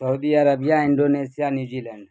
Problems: constant background noise